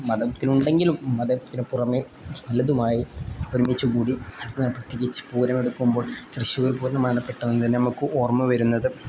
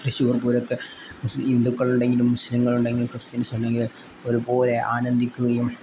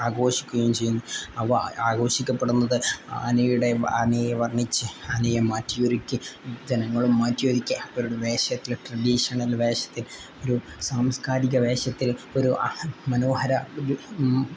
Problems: none marked